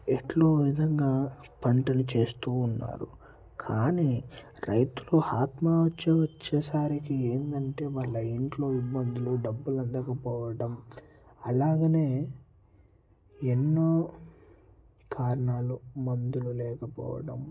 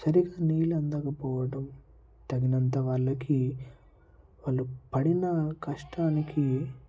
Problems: low volume